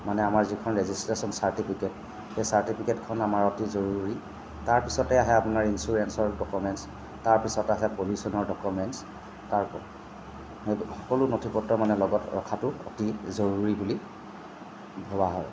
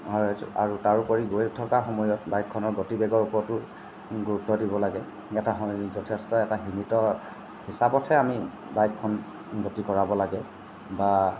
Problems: constant background noise